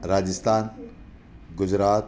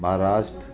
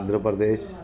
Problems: constant background noise